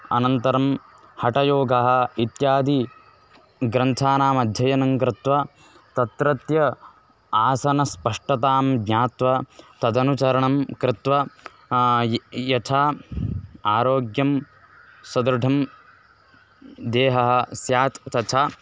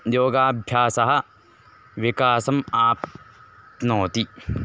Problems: constant background noise